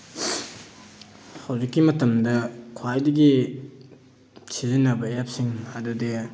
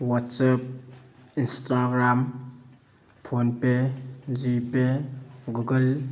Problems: background sounds at intervals